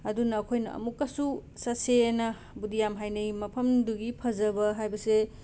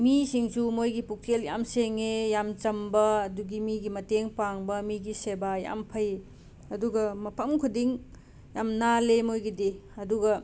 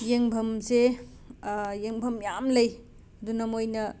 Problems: constant background noise